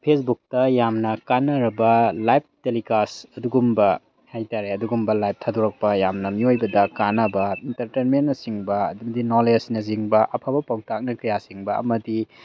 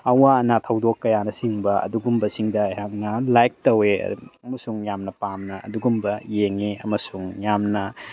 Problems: none marked